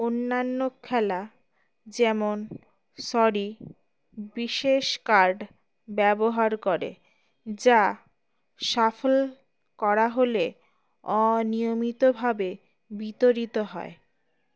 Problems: none marked